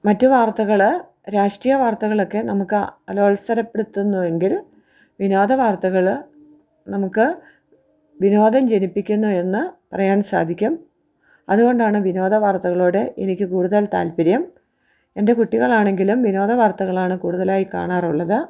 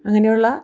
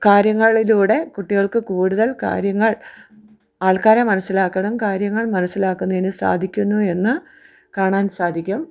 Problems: none marked